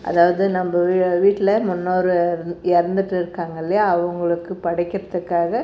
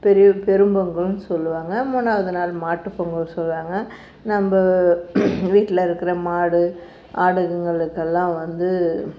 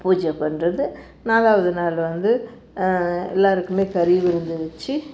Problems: background sounds at intervals